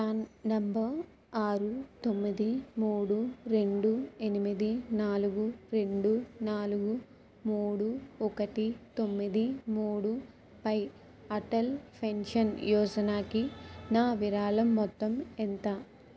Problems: background sounds at intervals